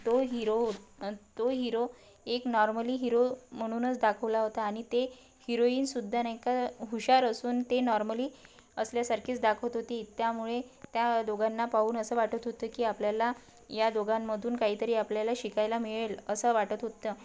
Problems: constant background noise